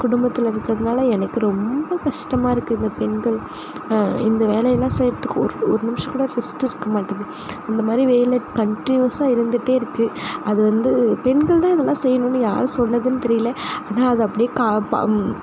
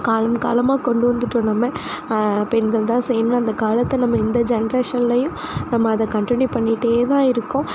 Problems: constant background noise